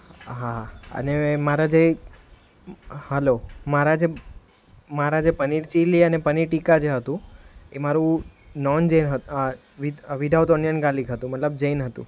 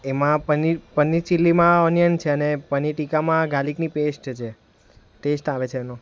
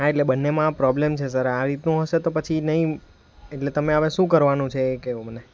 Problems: none marked